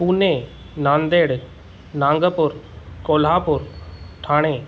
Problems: none marked